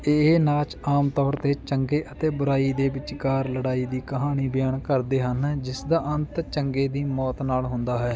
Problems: background sounds at intervals